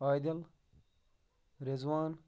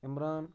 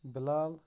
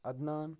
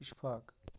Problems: none marked